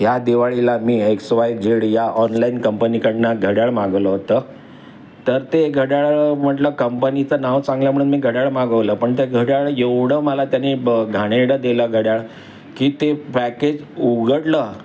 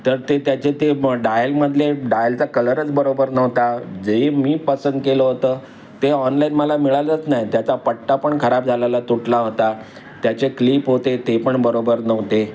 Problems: constant background noise, background conversations at intervals